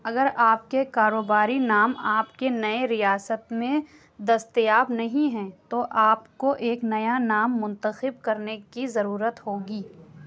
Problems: none marked